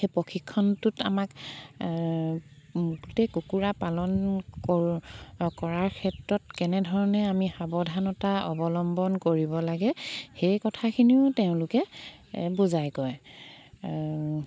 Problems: background sounds at intervals